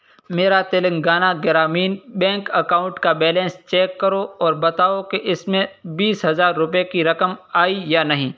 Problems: constant background noise